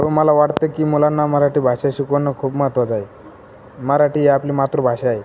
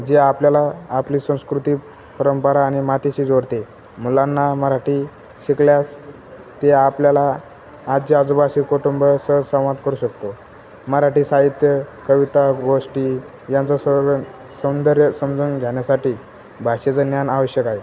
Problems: constant background noise